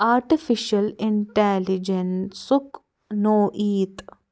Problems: none marked